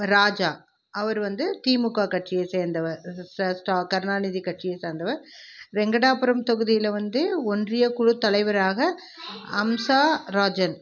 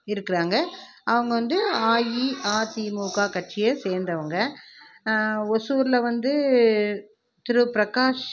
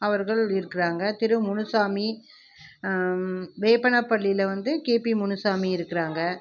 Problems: background conversations at intervals